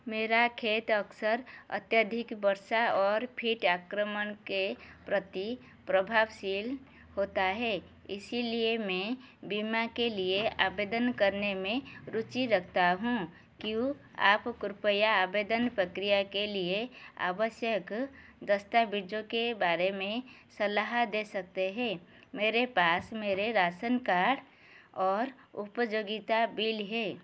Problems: none marked